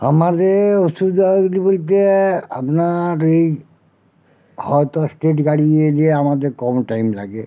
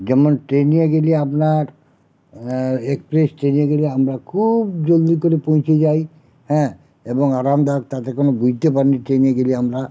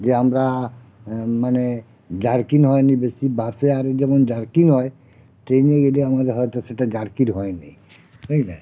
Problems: constant background noise